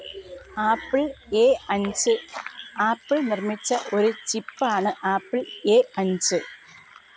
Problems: background sounds at intervals